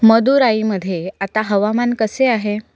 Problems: background sounds at intervals